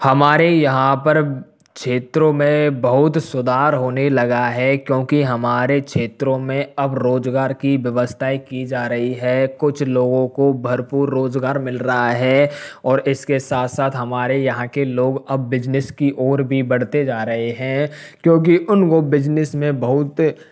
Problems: background sounds at intervals